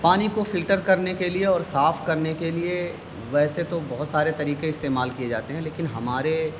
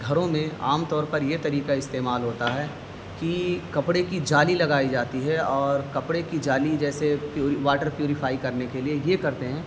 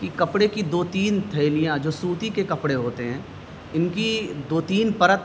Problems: constant background noise